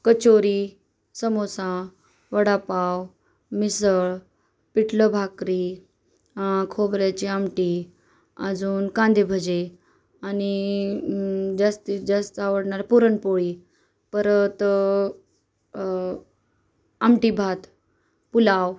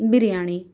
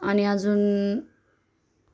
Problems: none marked